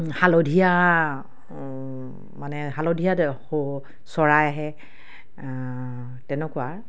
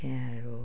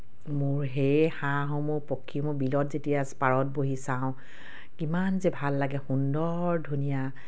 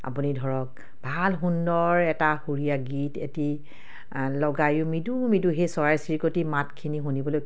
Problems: none marked